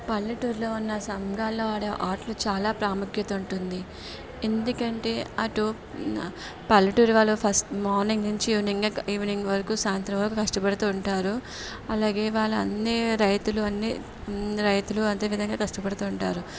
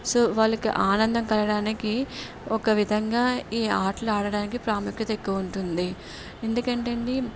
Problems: background conversations at intervals